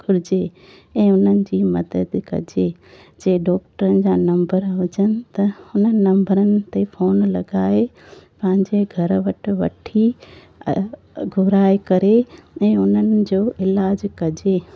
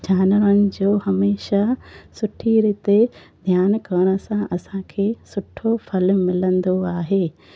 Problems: constant background noise